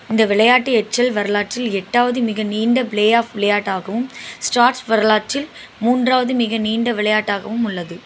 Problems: constant background noise